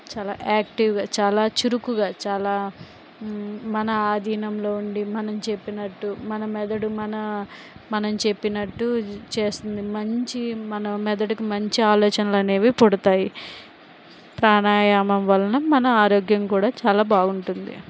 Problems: constant background noise, background conversations at intervals